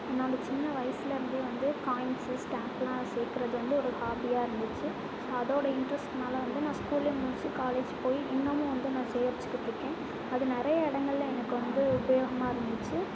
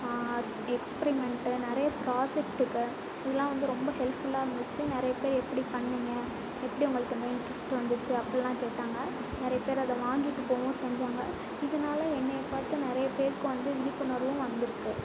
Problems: constant background noise